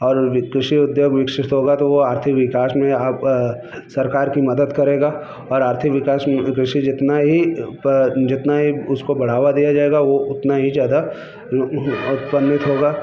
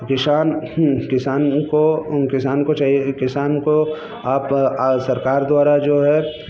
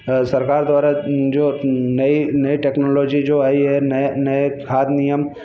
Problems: none marked